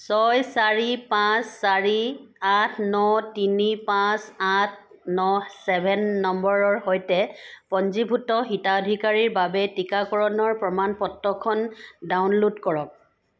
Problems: background sounds at intervals